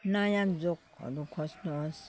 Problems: background sounds at intervals